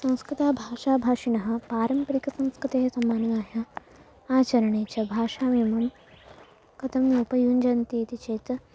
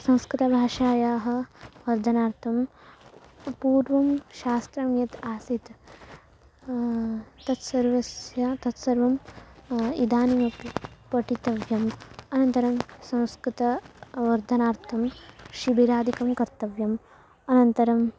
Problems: none marked